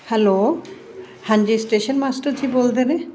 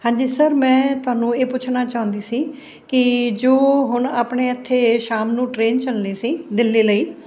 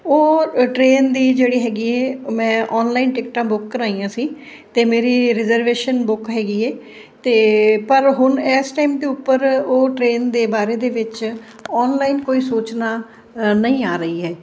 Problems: none marked